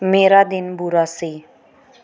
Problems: background sounds at intervals